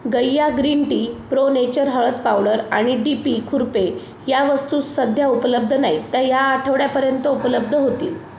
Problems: constant background noise, background conversations at intervals